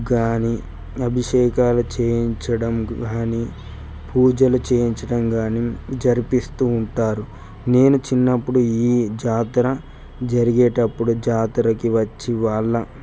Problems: constant background noise